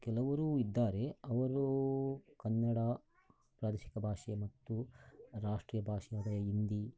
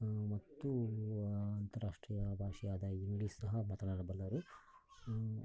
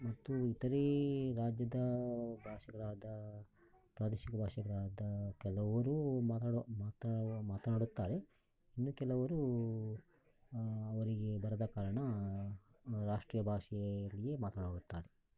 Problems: low volume